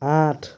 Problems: constant background noise